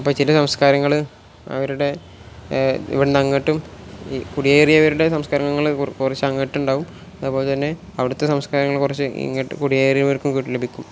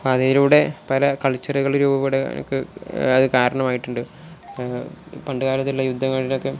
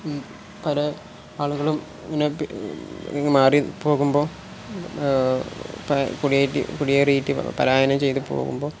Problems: none marked